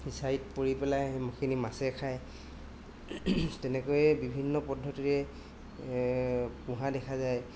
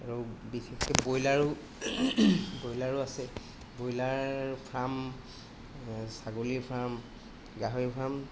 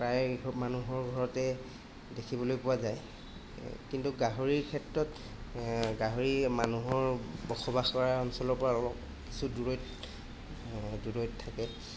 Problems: constant background noise